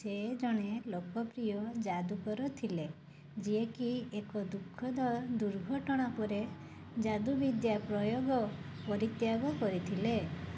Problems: low volume